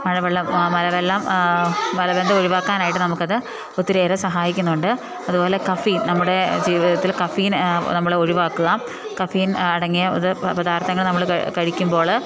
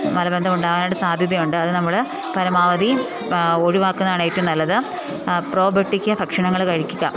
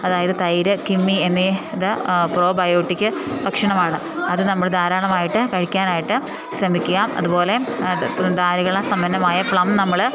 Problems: background sounds at intervals